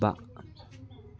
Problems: none marked